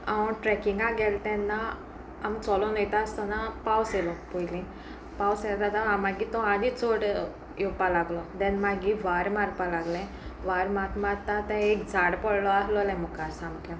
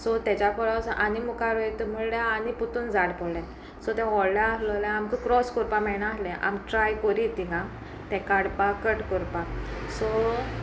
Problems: constant background noise, background conversations at intervals